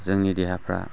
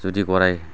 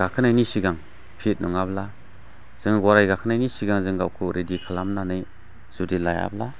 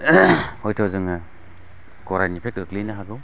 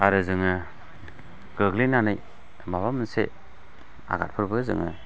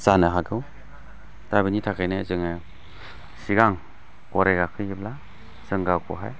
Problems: constant background noise